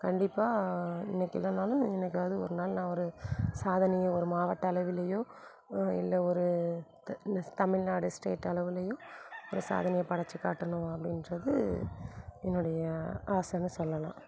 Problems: none marked